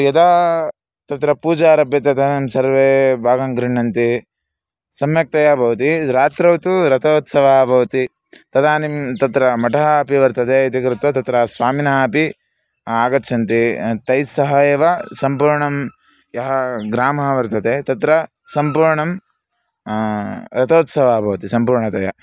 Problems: background sounds at intervals